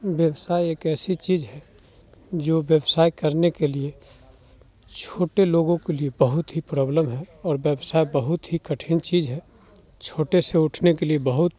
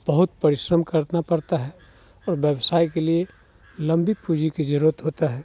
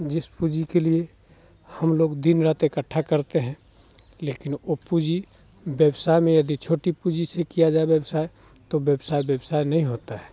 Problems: background sounds at intervals